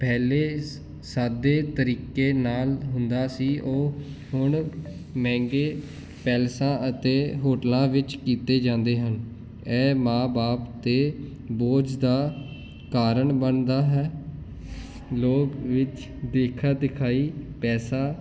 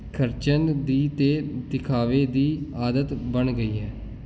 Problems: none marked